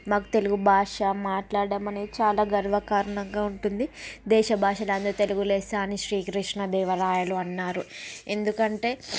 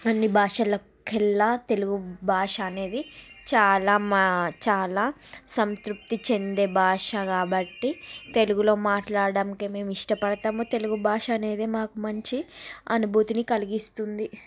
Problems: background sounds at intervals